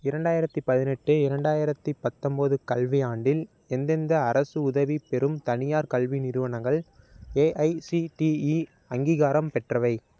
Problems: none marked